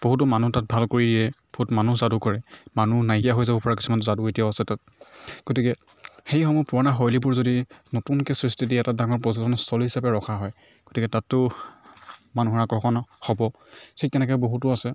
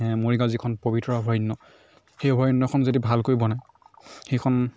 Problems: none marked